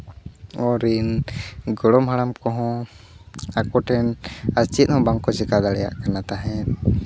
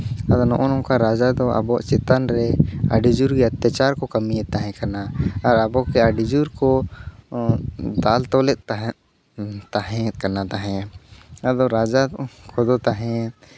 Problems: background sounds at intervals